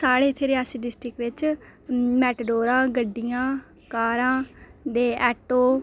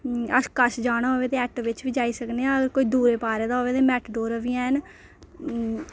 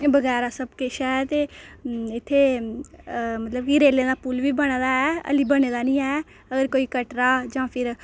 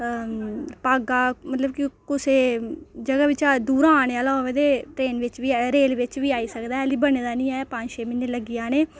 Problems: low volume